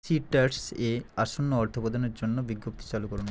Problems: constant background noise